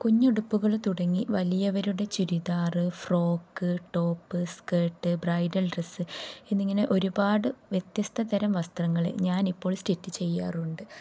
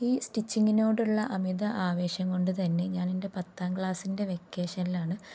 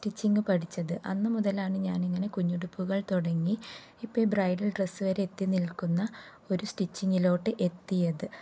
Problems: low volume